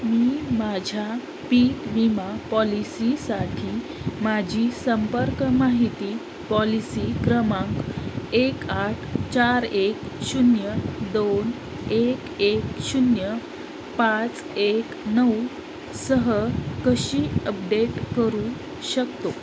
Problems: constant background noise